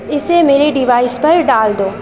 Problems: constant background noise